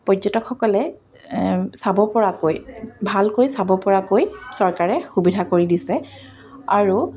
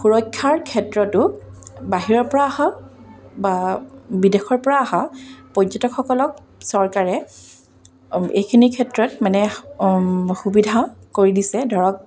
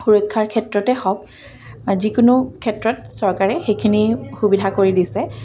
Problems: none marked